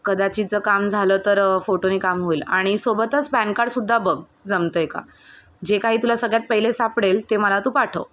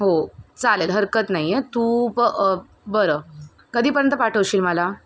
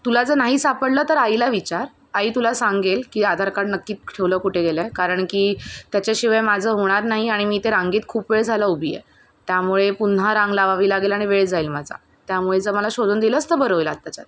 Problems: constant background noise